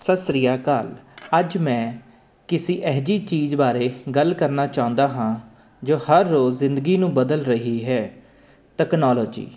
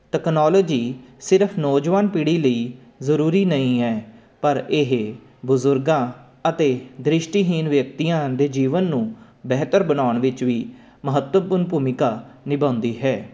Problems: constant background noise